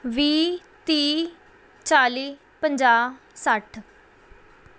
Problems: background sounds at intervals